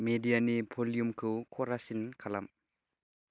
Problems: none marked